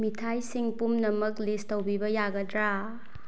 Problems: low volume